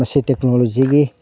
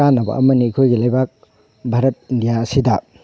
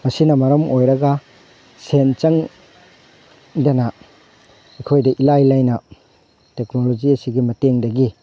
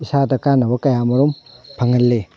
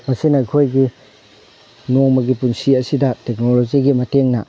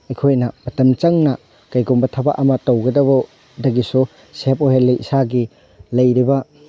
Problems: background sounds at intervals